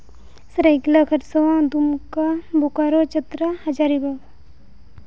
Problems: constant background noise